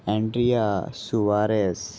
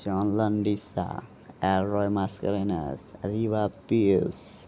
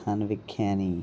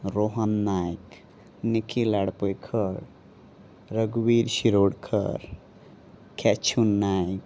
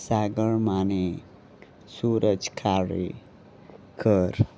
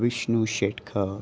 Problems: constant background noise, continuous background conversations